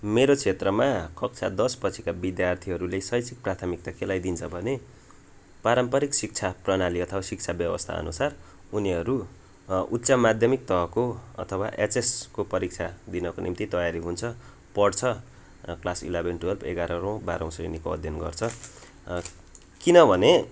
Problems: constant background noise